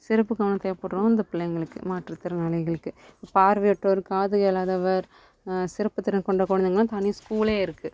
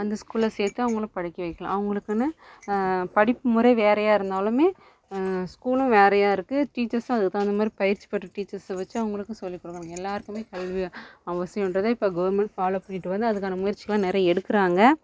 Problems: constant background noise